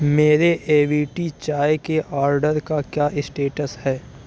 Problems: none marked